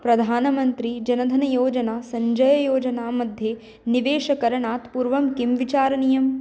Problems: none marked